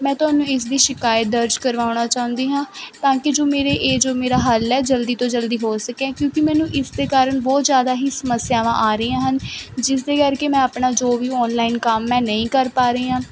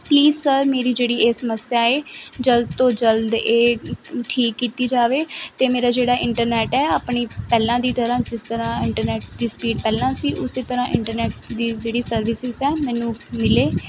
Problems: none marked